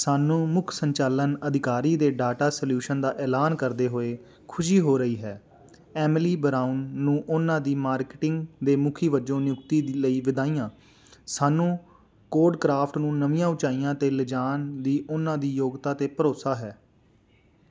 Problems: background sounds at intervals